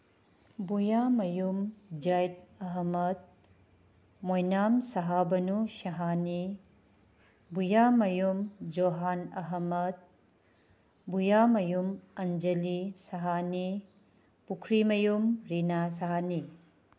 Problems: background sounds at intervals